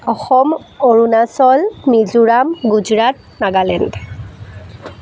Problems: none marked